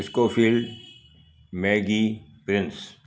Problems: constant background noise, echo